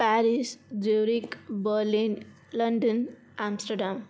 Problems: constant background noise